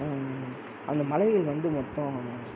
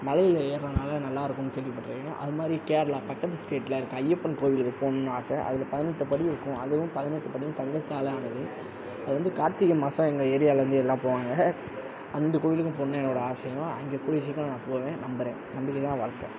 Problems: constant background noise